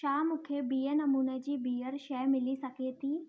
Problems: none marked